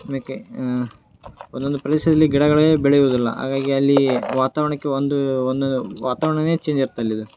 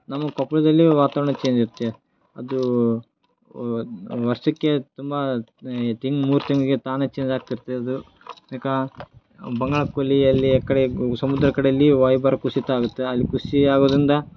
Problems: none marked